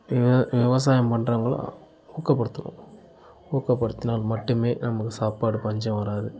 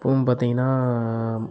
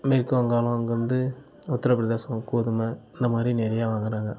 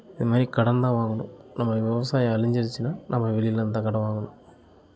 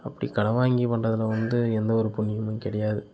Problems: continuous background conversations